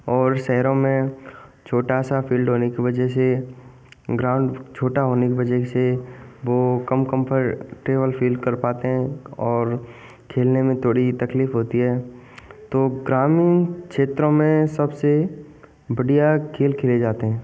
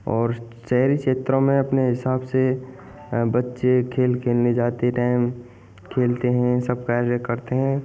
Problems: constant background noise